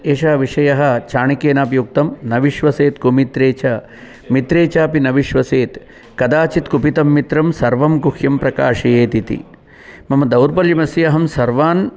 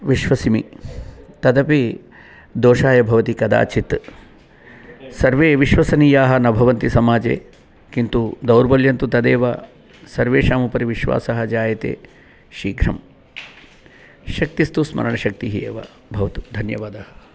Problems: continuous background conversations